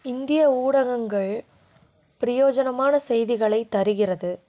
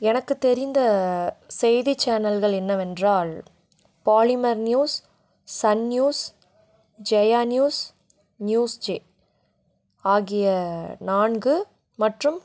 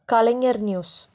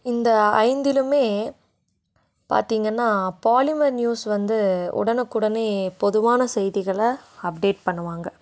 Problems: none marked